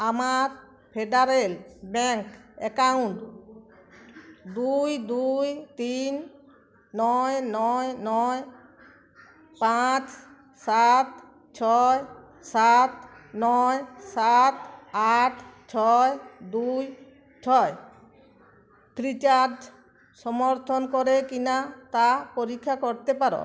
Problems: constant background noise, continuous background conversations